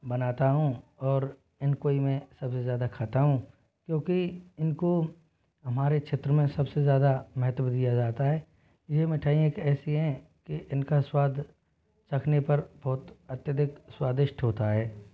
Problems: low volume